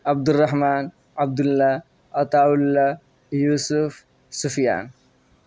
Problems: none marked